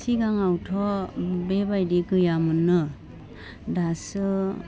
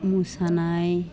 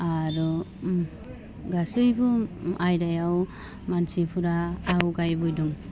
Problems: low volume